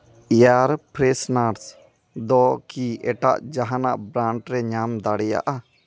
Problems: background conversations at intervals